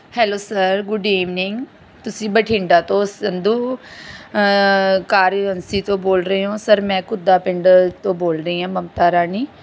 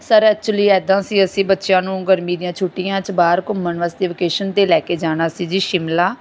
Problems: none marked